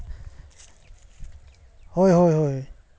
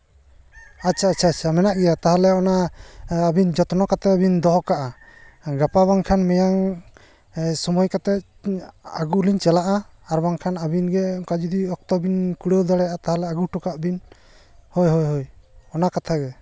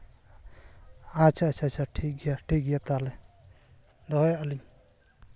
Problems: none marked